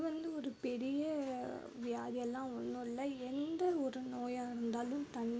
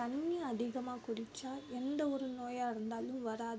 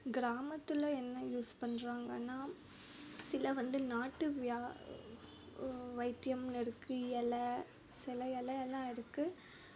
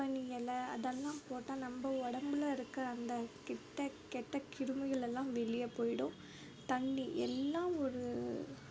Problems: none marked